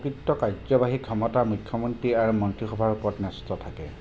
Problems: none marked